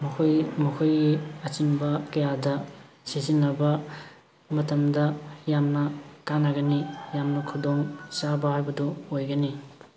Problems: constant background noise